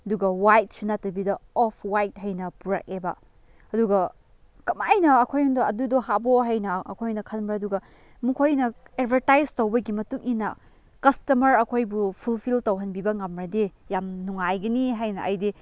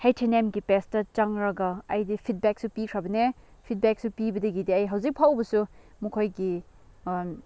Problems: none marked